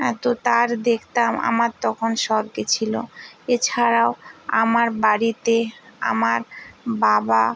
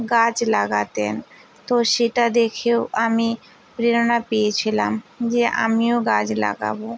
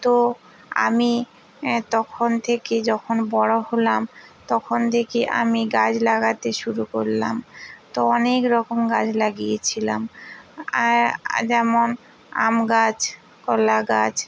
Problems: constant background noise